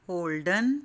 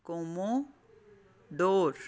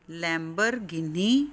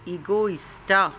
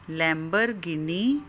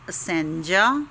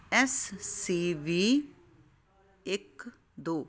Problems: none marked